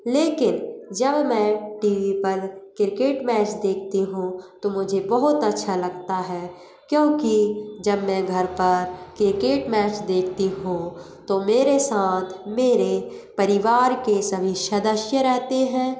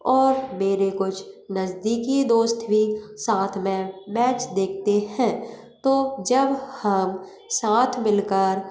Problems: none marked